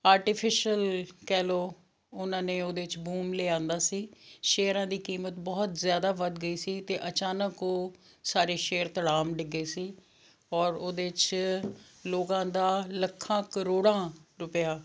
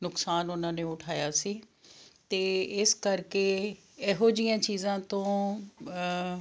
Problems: none marked